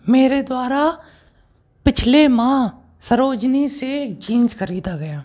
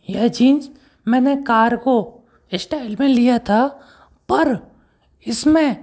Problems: background sounds at intervals